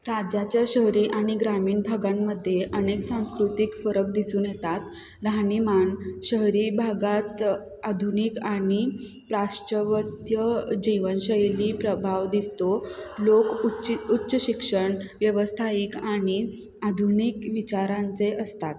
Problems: none marked